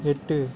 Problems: background conversations at intervals